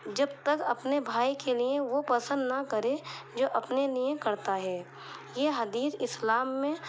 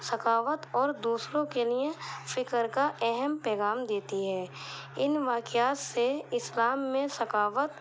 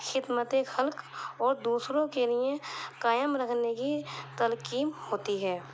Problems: constant background noise